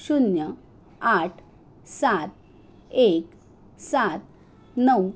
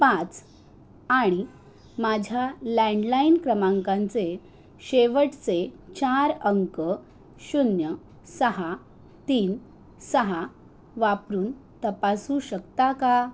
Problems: constant background noise